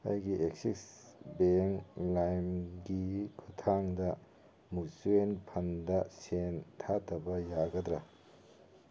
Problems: none marked